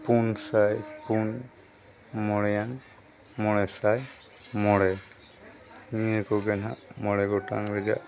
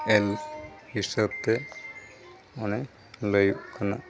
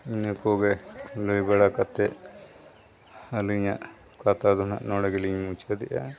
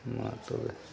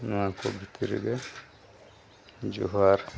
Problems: constant background noise, continuous background conversations